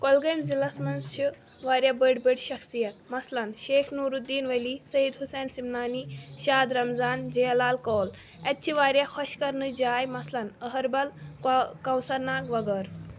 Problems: constant background noise